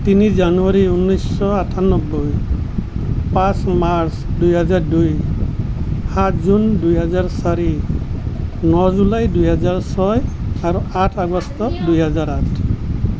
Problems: none marked